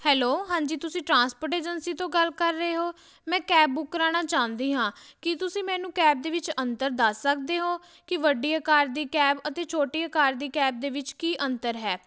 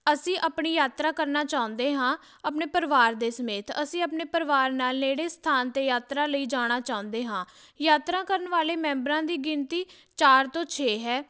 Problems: none marked